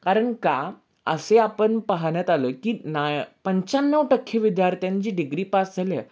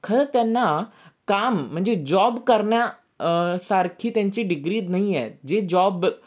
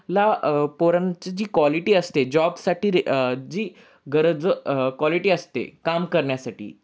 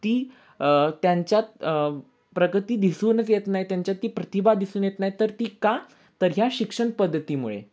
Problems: none marked